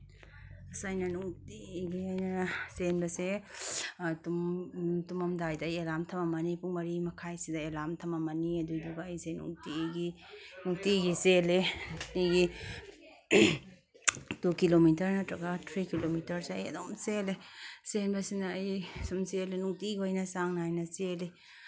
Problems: none marked